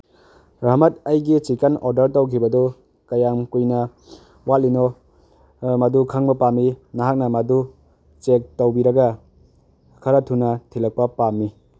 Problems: none marked